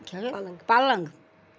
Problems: background conversations at intervals